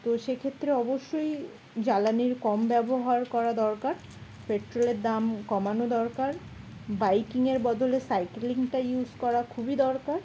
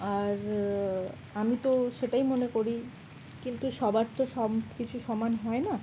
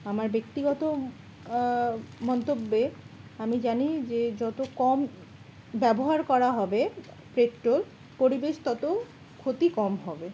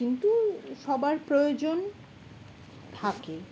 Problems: none marked